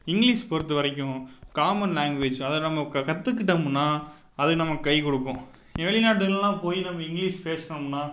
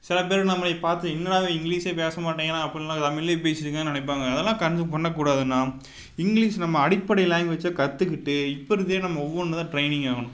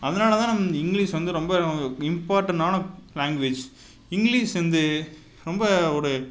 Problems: none marked